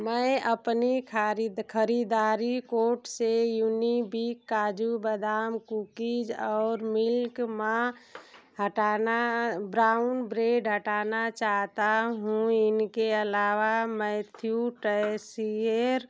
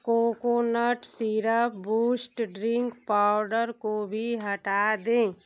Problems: constant background noise